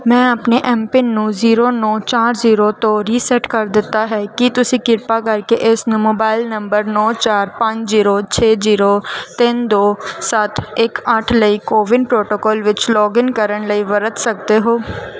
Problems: background sounds at intervals